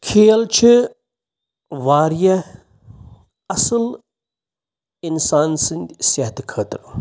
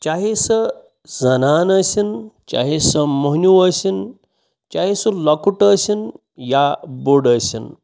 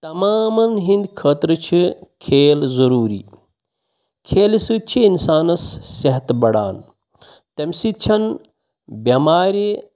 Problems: background sounds at intervals